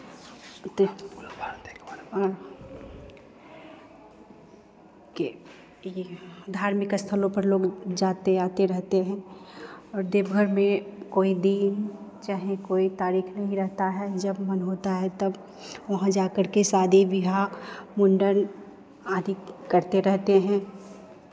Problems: constant background noise, background conversations at intervals